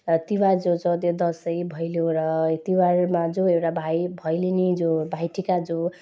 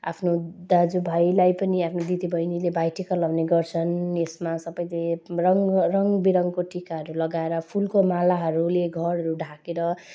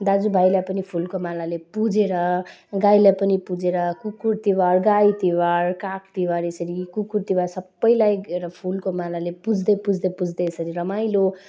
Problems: none marked